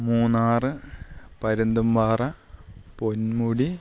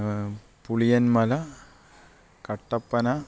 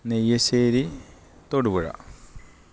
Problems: none marked